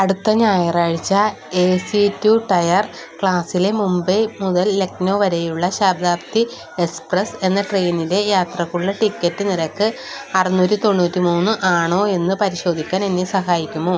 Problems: constant background noise